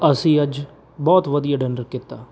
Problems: background sounds at intervals